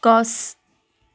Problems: background conversations at intervals